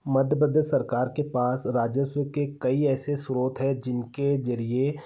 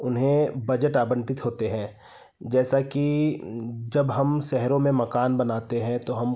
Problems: none marked